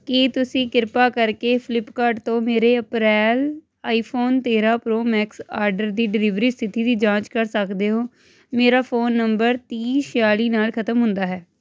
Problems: constant background noise